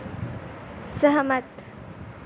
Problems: constant background noise